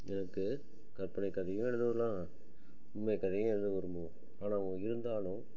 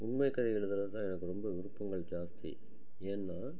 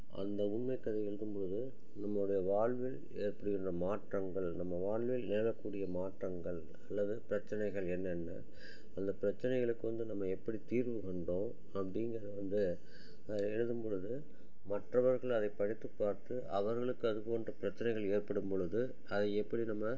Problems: low volume